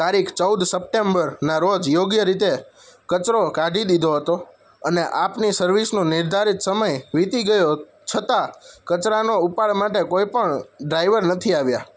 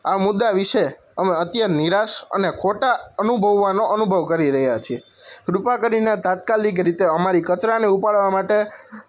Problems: none marked